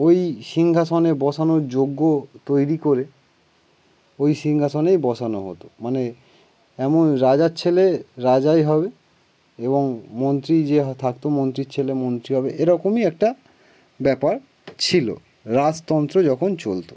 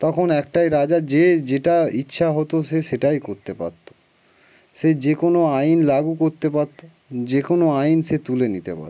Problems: background sounds at intervals, background conversations at intervals